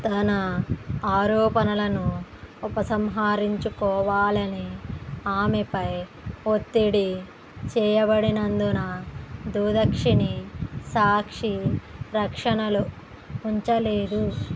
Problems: constant background noise